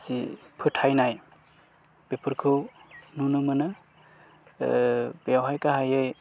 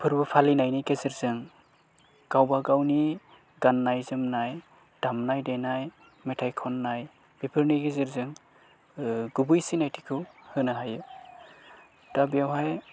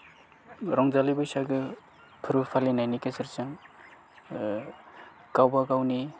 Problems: low volume